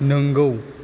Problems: constant background noise